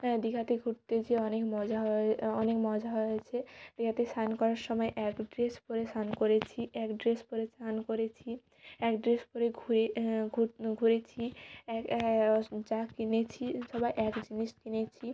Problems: background sounds at intervals